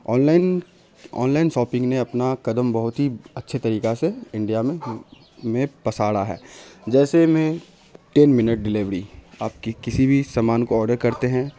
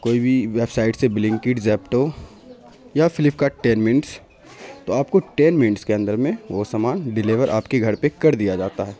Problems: constant background noise